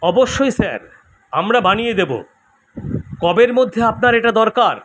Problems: constant background noise